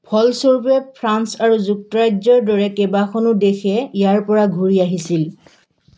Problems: background sounds at intervals